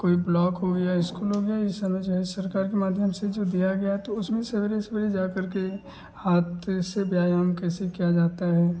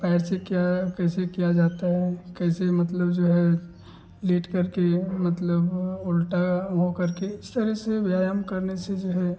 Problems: constant background noise